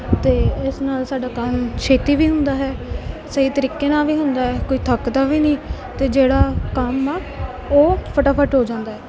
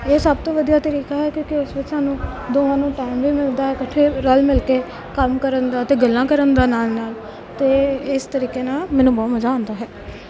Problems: none marked